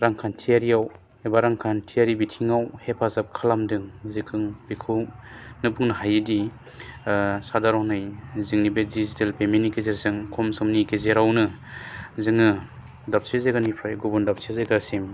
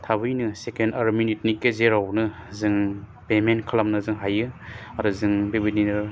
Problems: constant background noise